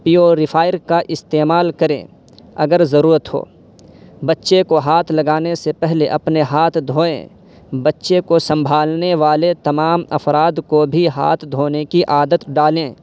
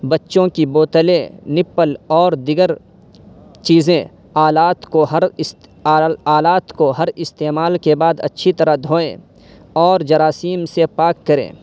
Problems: constant background noise